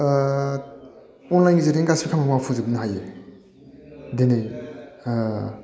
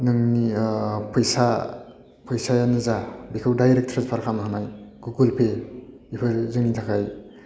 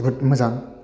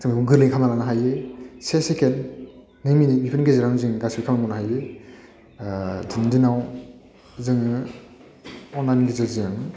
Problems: none marked